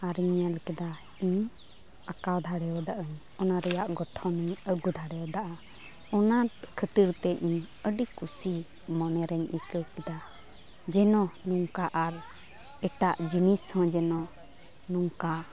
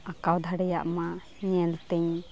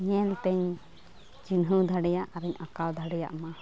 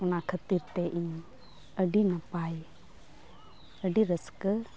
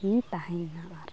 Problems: none marked